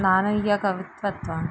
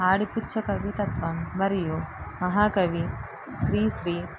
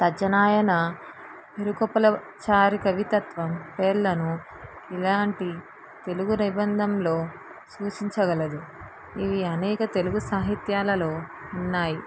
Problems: none marked